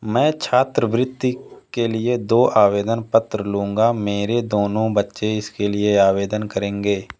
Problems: none marked